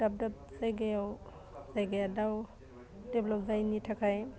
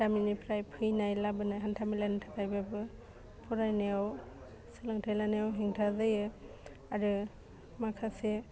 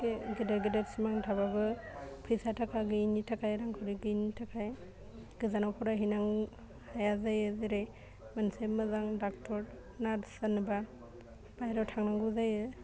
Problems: low volume